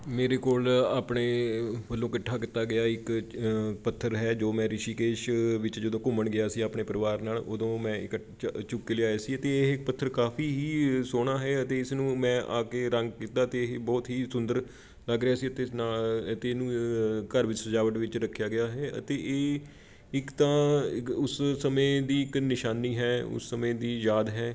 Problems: constant background noise